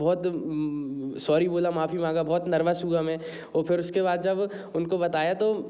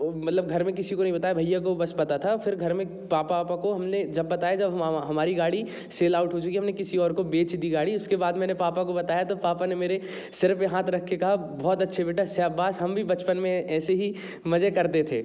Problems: background sounds at intervals